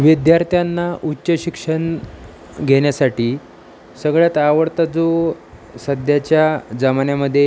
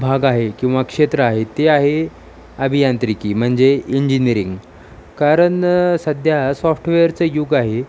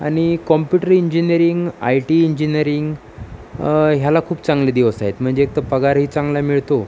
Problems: constant background noise